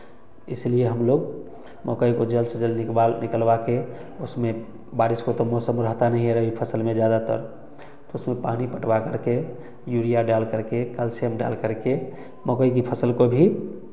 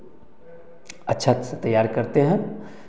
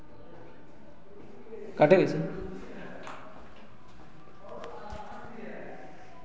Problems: background conversations at intervals, echo